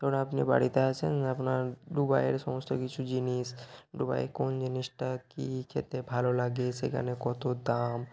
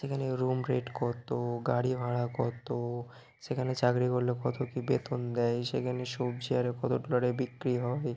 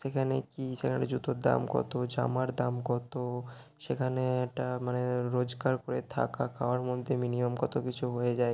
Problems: background sounds at intervals